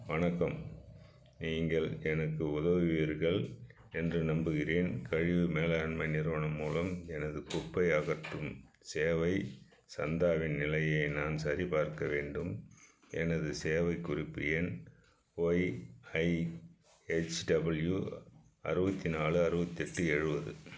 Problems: none marked